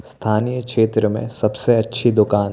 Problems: constant background noise